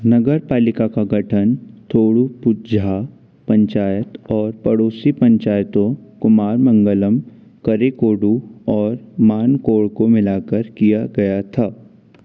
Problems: background sounds at intervals